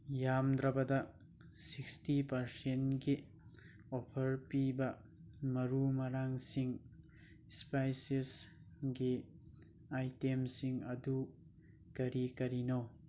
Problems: none marked